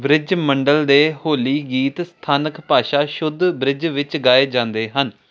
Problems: none marked